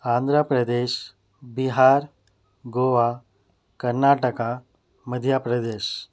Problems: background sounds at intervals